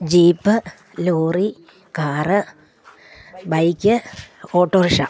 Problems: none marked